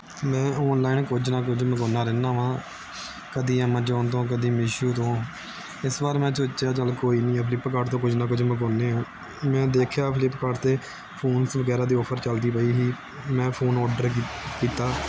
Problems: continuous background conversations